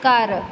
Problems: background sounds at intervals